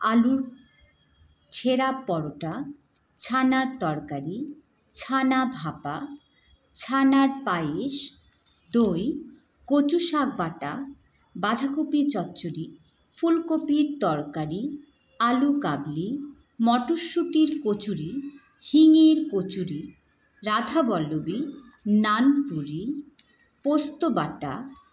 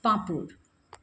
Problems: none marked